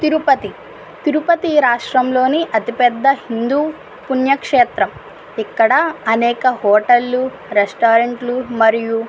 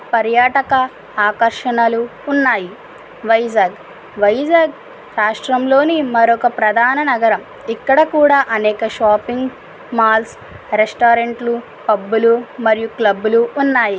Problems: constant background noise